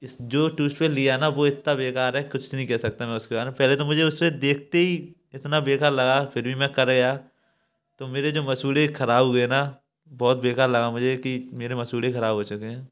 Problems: none marked